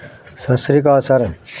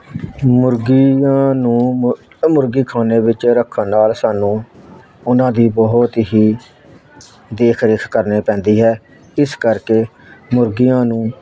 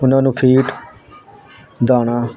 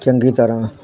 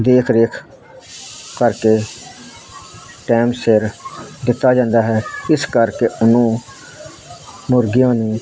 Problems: constant background noise